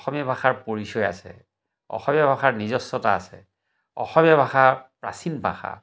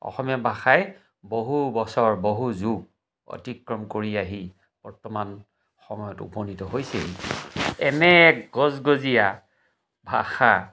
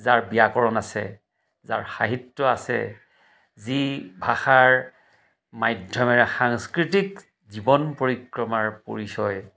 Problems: background sounds at intervals